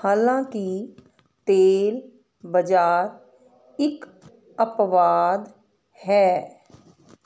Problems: none marked